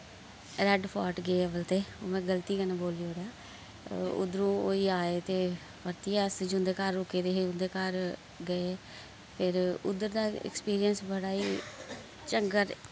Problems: constant background noise